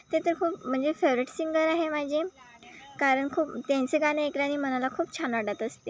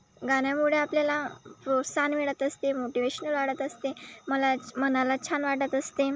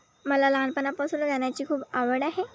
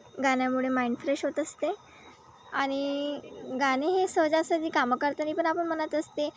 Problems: constant background noise, background conversations at intervals